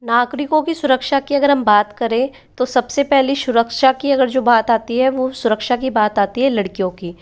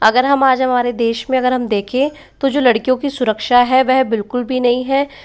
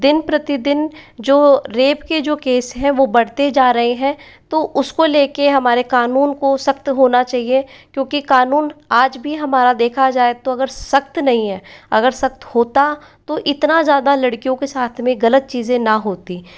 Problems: none marked